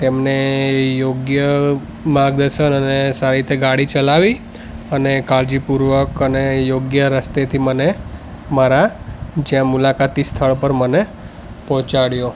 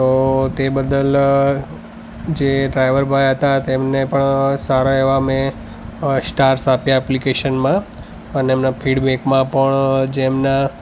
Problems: constant background noise, background conversations at intervals